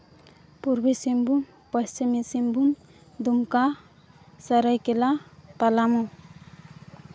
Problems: constant background noise